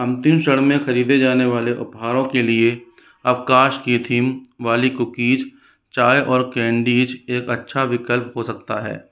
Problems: none marked